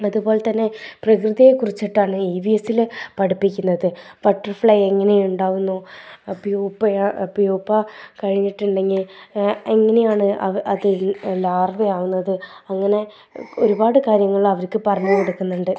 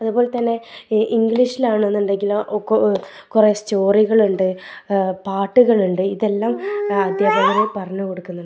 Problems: background sounds at intervals